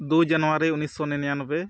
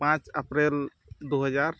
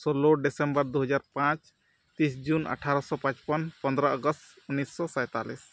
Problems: none marked